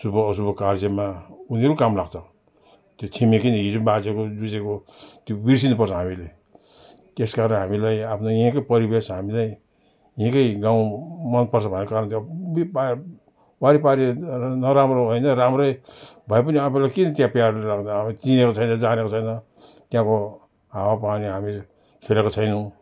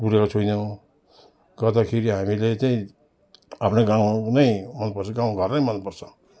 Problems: none marked